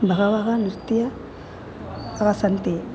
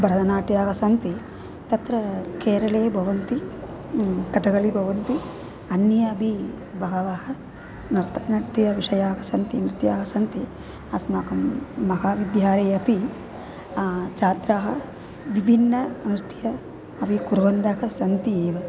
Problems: constant background noise